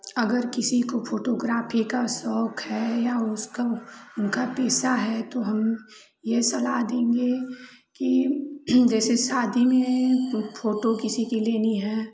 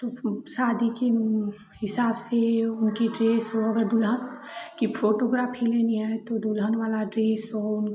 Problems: constant background noise, continuous background conversations